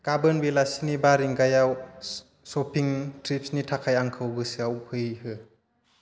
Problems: constant background noise